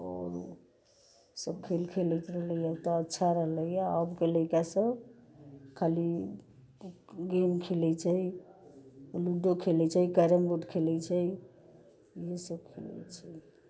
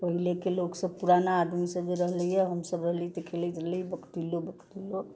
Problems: constant background noise